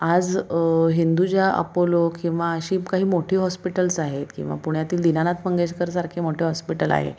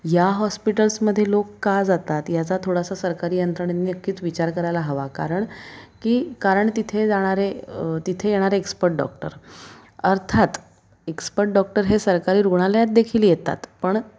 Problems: constant background noise, background conversations at intervals